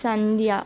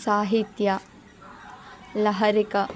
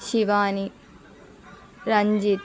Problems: continuous background conversations